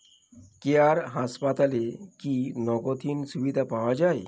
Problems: none marked